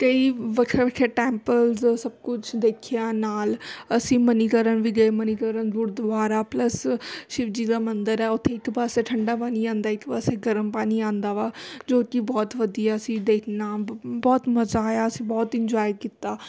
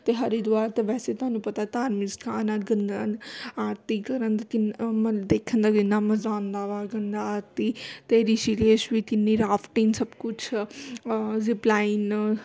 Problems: constant background noise